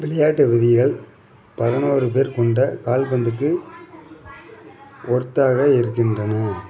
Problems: background sounds at intervals, background conversations at intervals